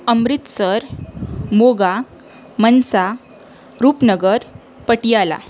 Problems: constant background noise